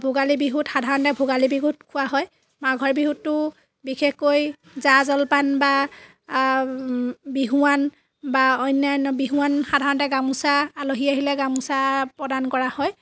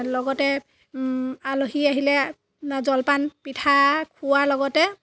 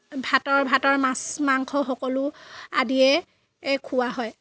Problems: background sounds at intervals